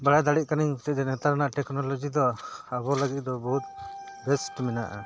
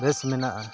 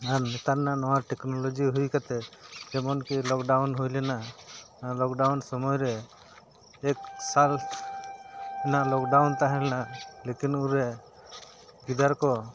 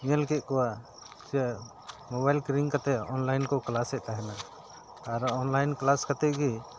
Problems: background sounds at intervals